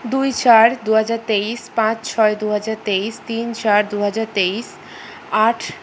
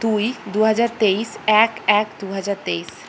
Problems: constant background noise